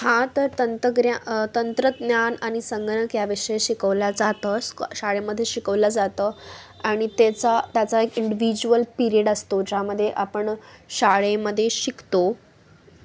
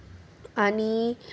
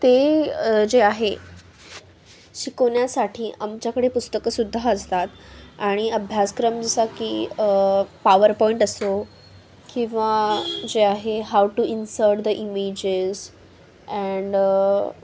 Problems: none marked